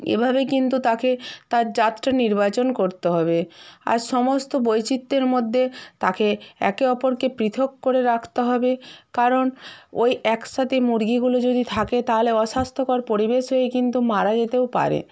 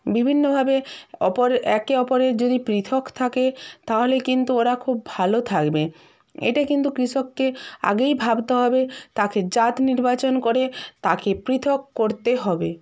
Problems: none marked